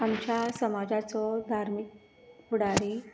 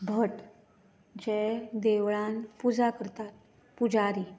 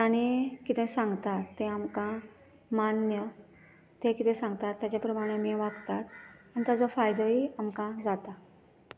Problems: background sounds at intervals